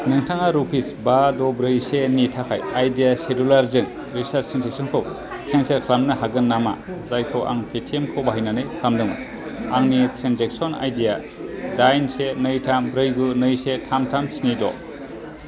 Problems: constant background noise